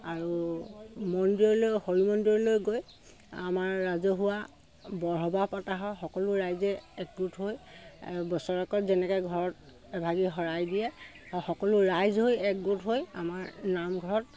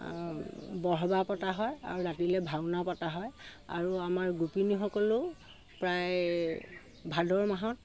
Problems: constant background noise